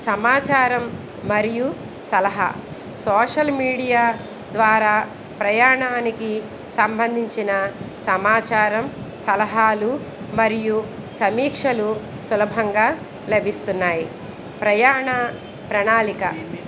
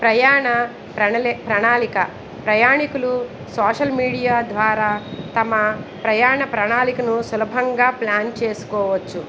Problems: background conversations at intervals